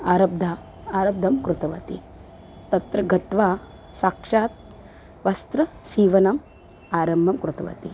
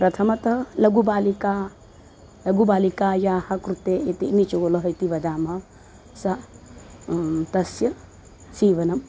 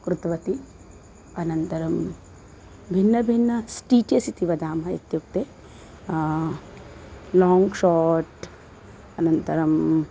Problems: constant background noise